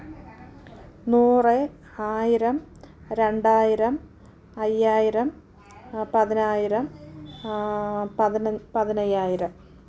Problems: background sounds at intervals